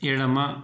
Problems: none marked